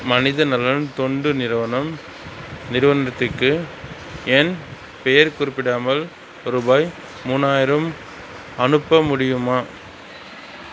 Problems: constant background noise